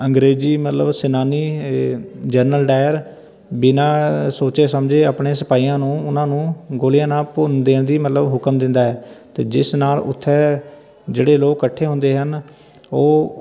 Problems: constant background noise, continuous background conversations